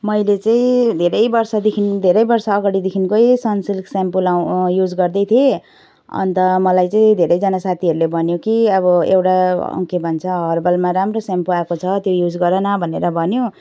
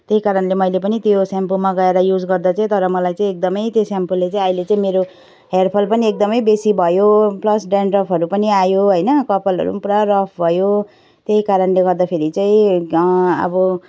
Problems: background sounds at intervals